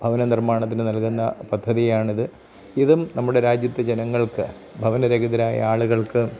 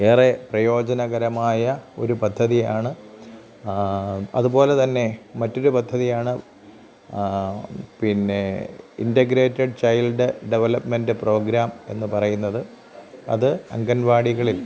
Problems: background sounds at intervals, low volume